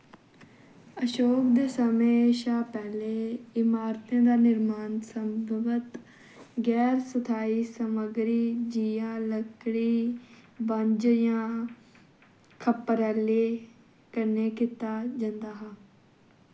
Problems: constant background noise